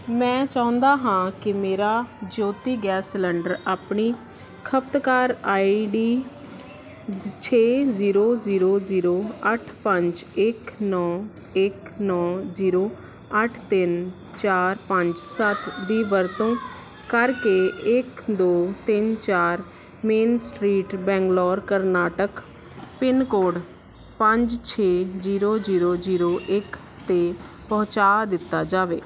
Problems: background sounds at intervals